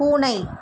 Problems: constant background noise